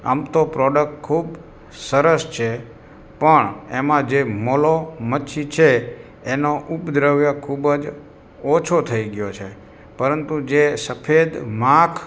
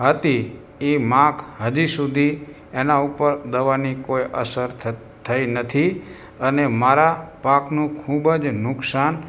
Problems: background sounds at intervals